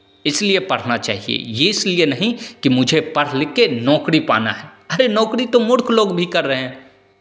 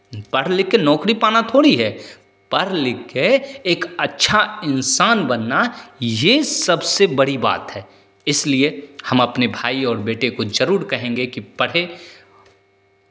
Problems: constant background noise, echo